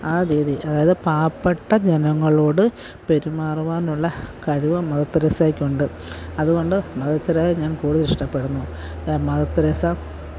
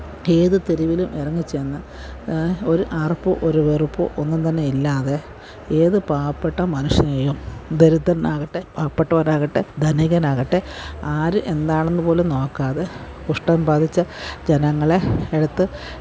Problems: background sounds at intervals